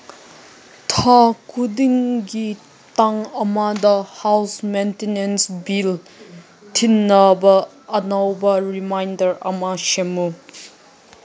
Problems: none marked